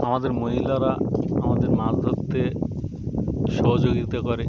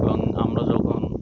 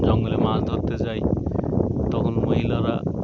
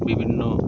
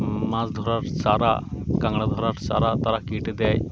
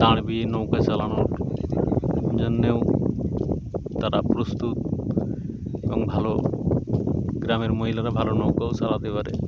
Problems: constant background noise, background conversations at intervals